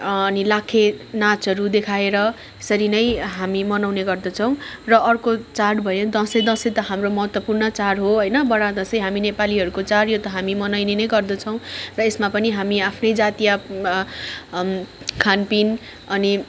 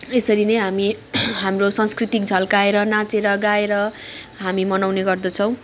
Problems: background sounds at intervals, background conversations at intervals